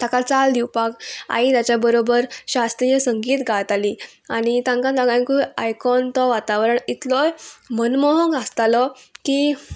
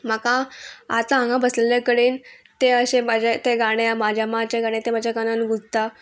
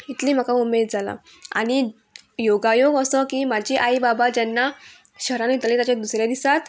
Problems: background sounds at intervals, background conversations at intervals